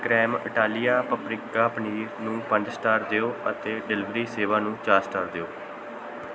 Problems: constant background noise